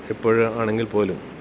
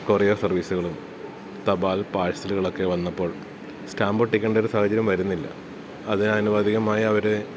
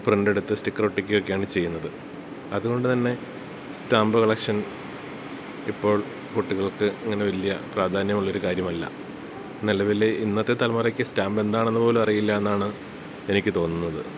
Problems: none marked